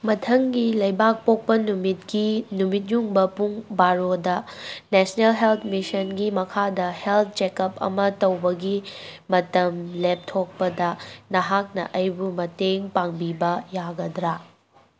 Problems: none marked